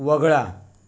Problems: background sounds at intervals